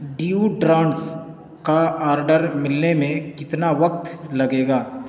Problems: constant background noise